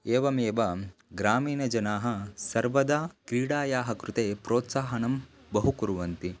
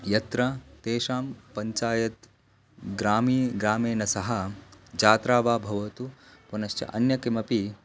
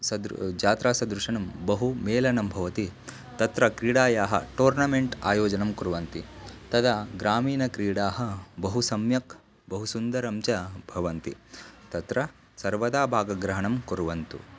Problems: constant background noise